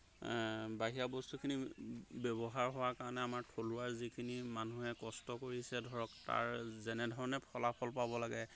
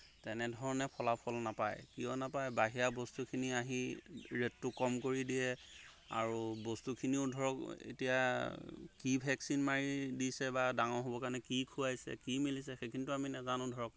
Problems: background sounds at intervals